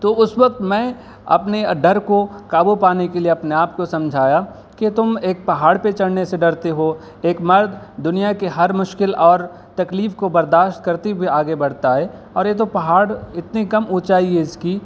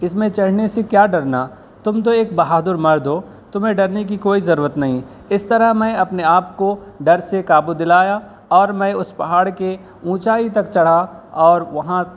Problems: background sounds at intervals